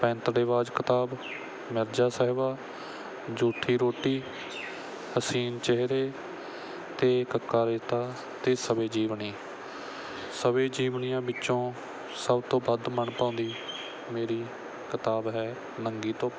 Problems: background sounds at intervals